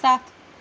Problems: none marked